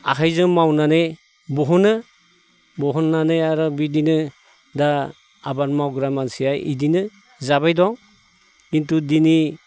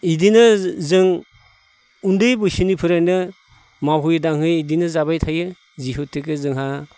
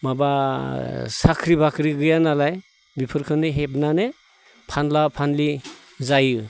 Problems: none marked